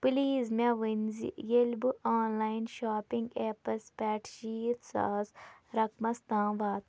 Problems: none marked